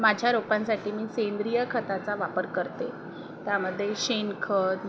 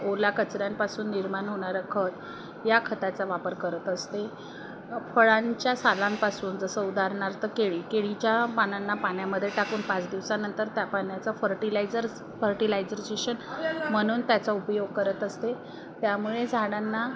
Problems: none marked